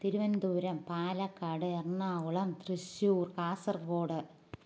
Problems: none marked